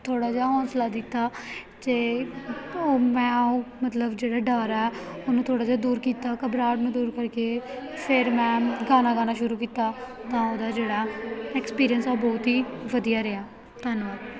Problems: background sounds at intervals, background conversations at intervals